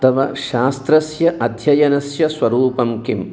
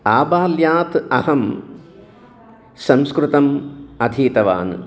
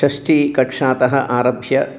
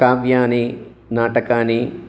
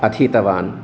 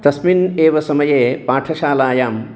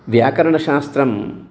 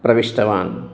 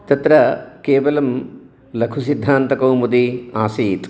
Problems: background conversations at intervals